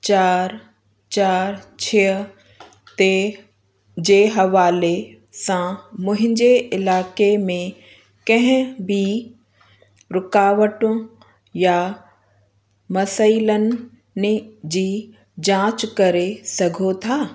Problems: constant background noise